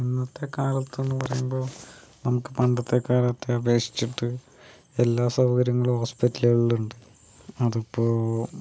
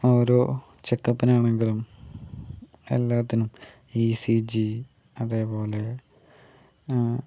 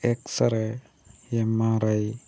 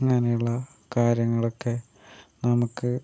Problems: none marked